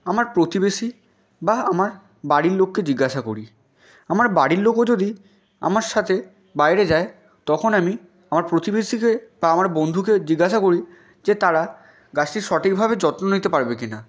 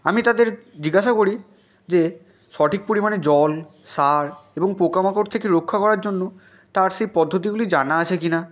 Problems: background sounds at intervals, continuous background conversations